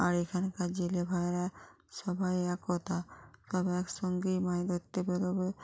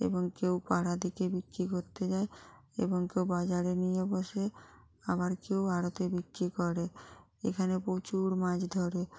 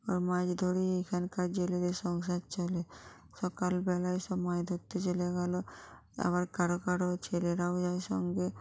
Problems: continuous background conversations